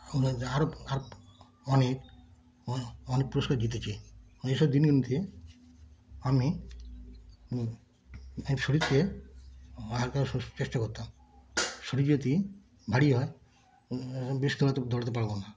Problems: constant background noise